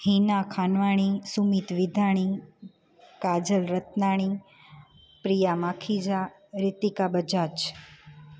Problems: constant background noise, echo